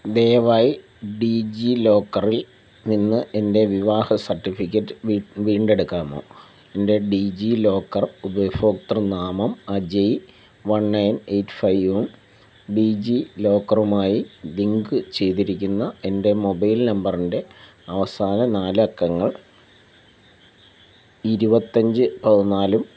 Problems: constant background noise